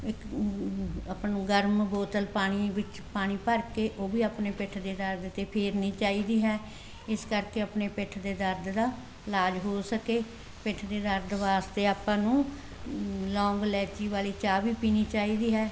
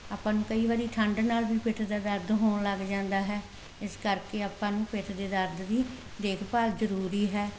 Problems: constant background noise